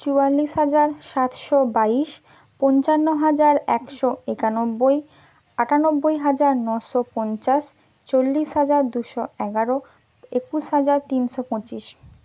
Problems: none marked